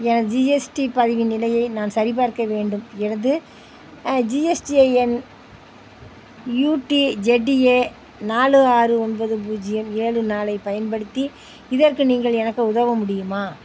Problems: constant background noise